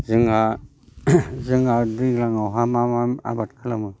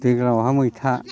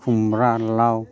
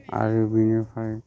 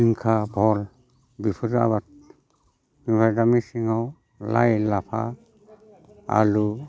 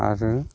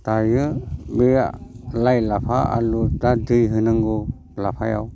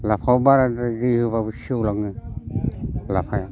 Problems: low volume